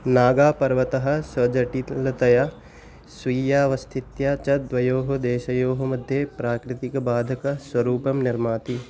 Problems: none marked